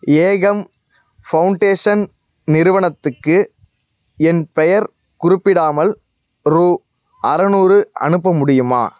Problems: none marked